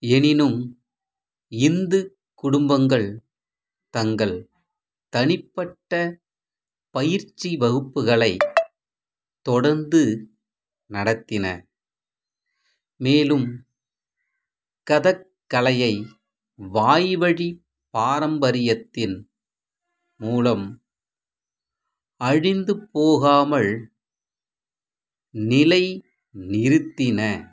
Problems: background sounds at intervals